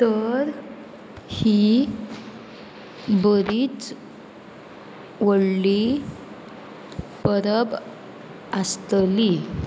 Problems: constant background noise